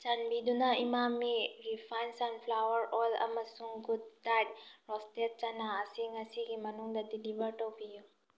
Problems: none marked